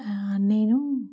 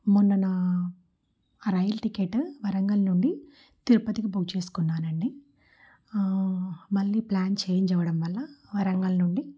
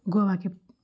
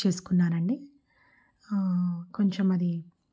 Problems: none marked